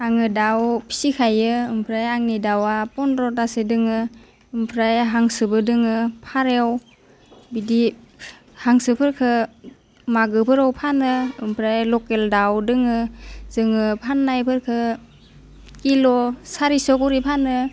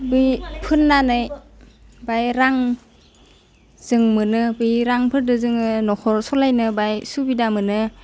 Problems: constant background noise